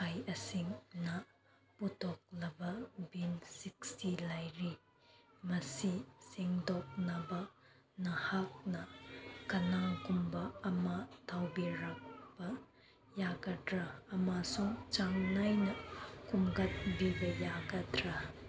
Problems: constant background noise, background conversations at intervals